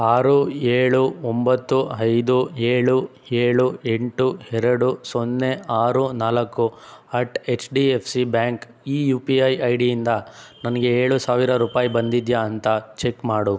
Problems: none marked